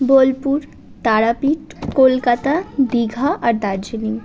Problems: none marked